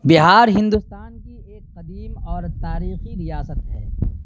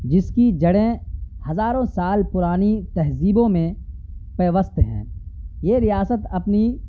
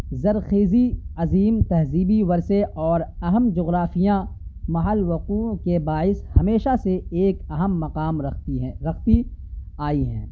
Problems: none marked